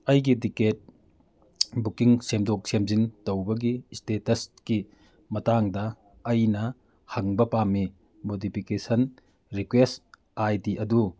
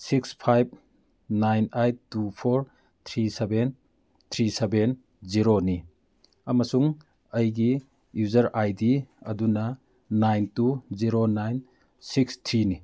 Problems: none marked